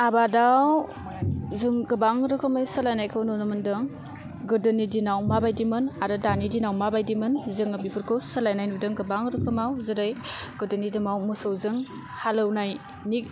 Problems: constant background noise